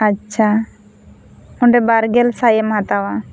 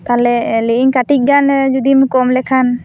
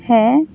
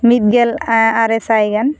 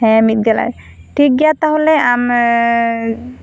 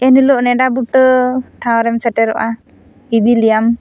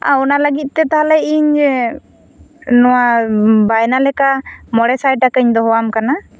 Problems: constant background noise